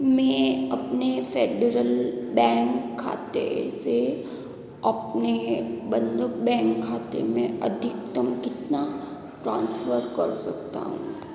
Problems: constant background noise, echo